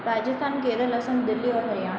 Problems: constant background noise